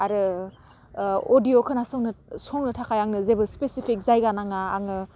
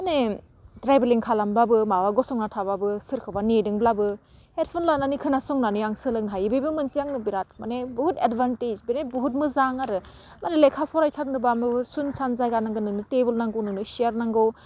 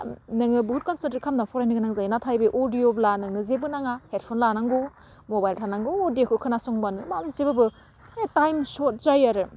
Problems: none marked